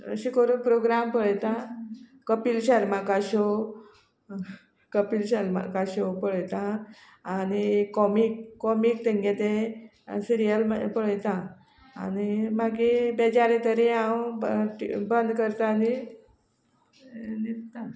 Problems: none marked